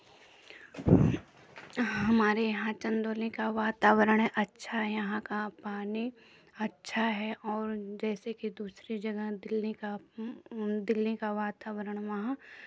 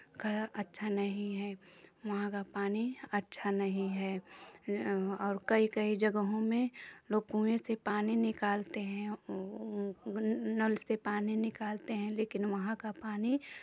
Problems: none marked